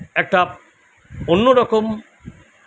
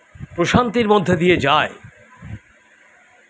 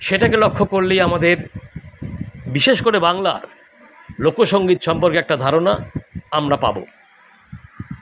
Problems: constant background noise